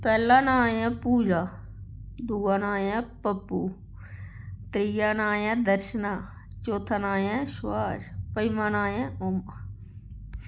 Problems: constant background noise